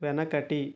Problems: none marked